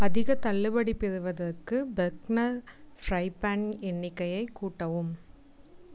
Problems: none marked